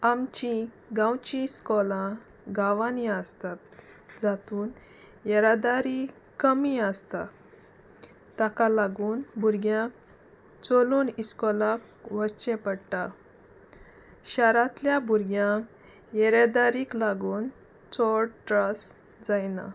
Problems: constant background noise, background conversations at intervals